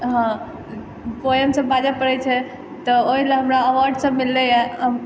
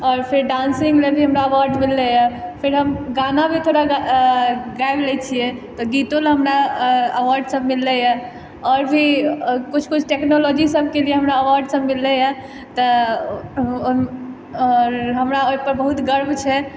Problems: background sounds at intervals